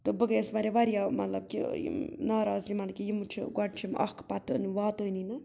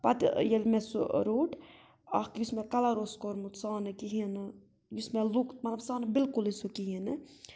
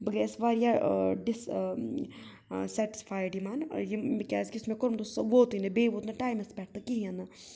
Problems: background sounds at intervals